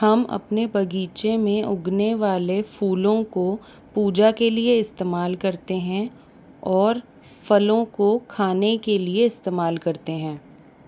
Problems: constant background noise